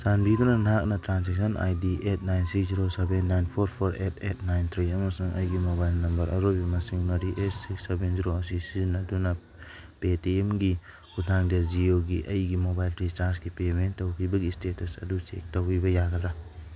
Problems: background sounds at intervals